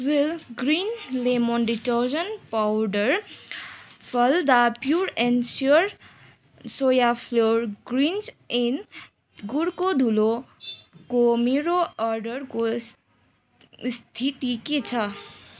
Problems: constant background noise